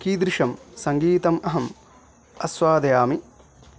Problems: background sounds at intervals